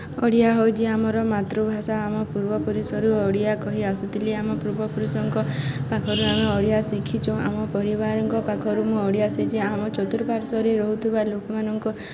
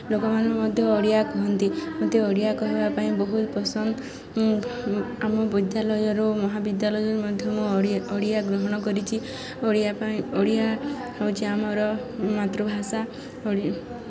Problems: none marked